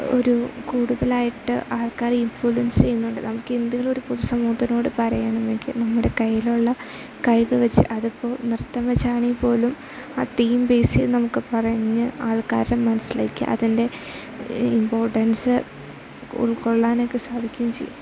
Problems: low volume